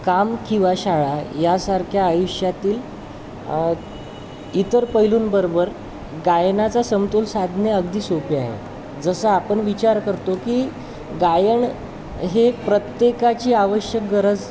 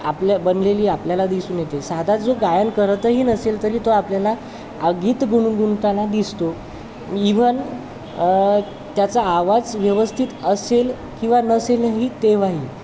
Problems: constant background noise, continuous background conversations